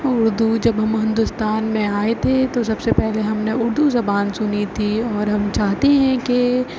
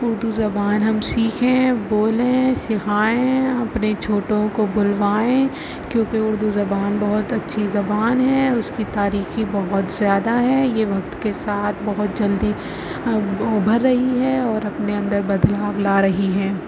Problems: constant background noise, low volume